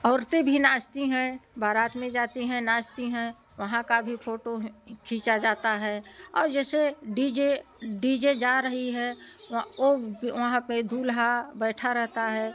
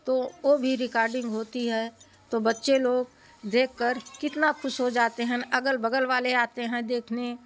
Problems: none marked